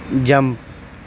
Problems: none marked